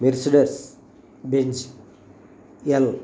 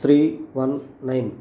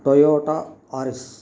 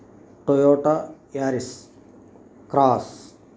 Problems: constant background noise